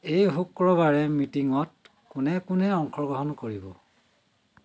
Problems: constant background noise